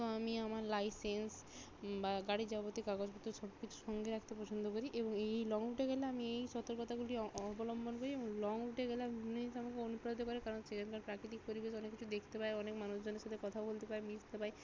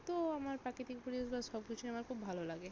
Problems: none marked